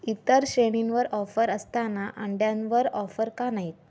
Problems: none marked